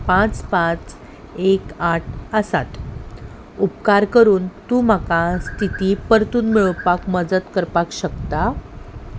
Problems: background sounds at intervals